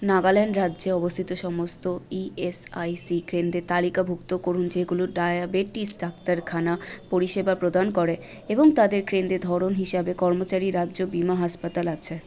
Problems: constant background noise, background conversations at intervals